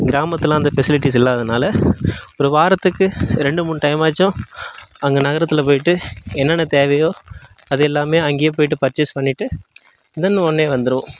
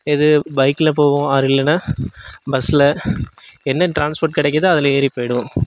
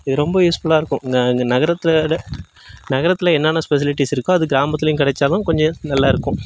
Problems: background sounds at intervals